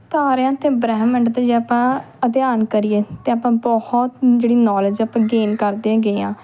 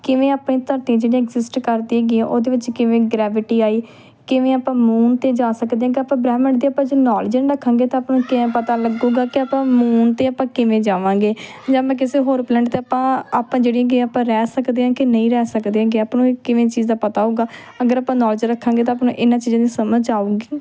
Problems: background sounds at intervals